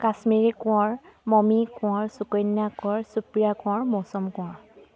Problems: none marked